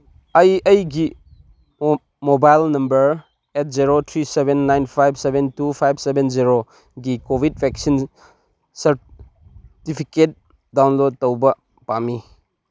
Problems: none marked